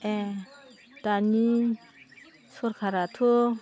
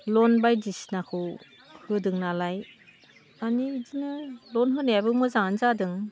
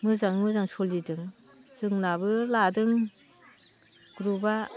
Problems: constant background noise